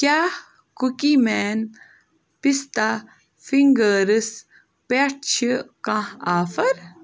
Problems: background sounds at intervals